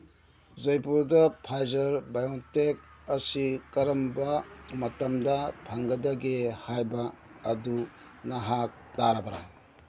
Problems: background sounds at intervals